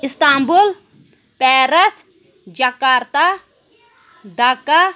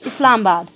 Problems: background sounds at intervals, background conversations at intervals